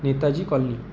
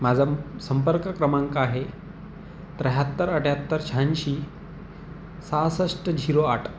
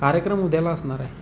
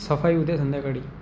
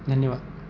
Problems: none marked